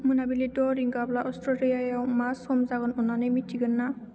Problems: low volume